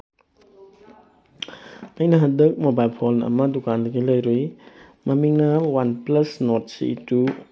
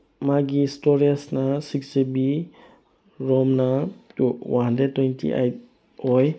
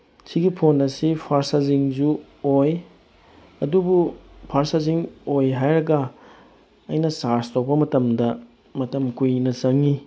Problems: none marked